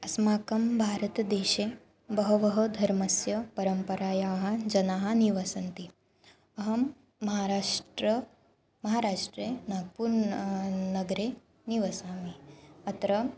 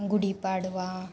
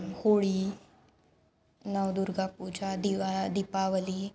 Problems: background sounds at intervals